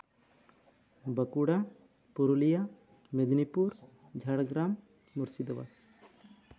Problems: none marked